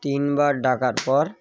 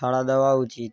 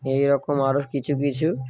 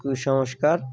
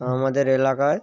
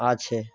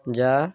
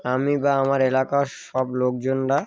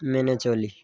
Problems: none marked